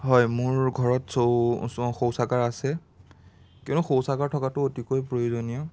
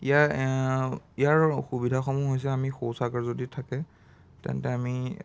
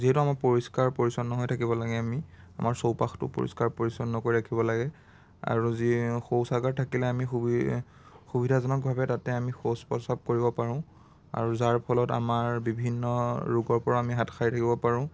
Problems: none marked